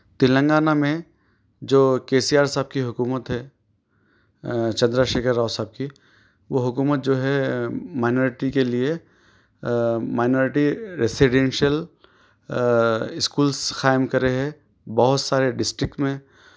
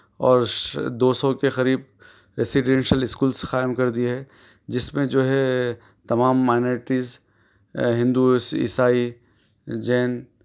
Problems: background sounds at intervals